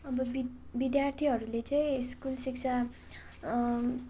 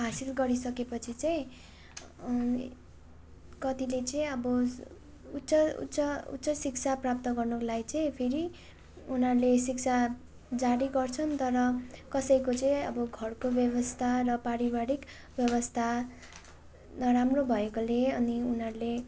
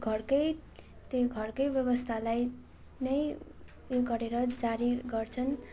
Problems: constant background noise